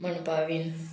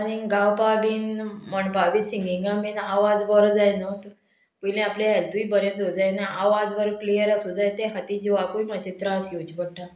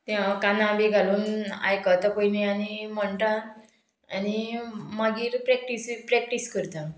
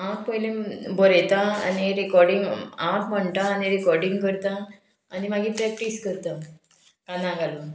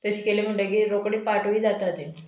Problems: background sounds at intervals